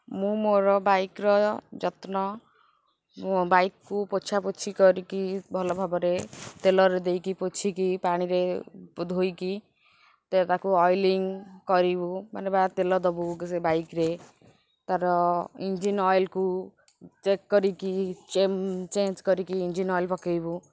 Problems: constant background noise, background conversations at intervals